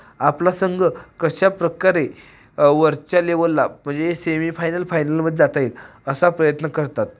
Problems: none marked